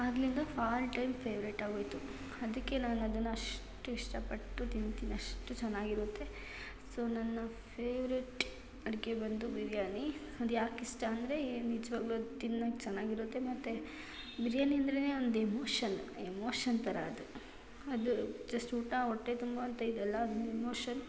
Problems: none marked